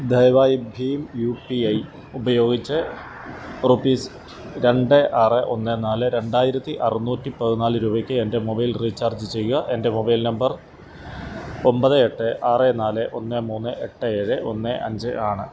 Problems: none marked